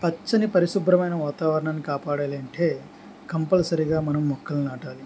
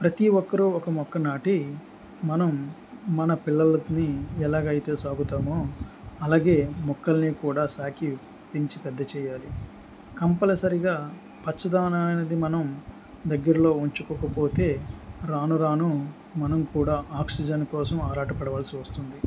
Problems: background sounds at intervals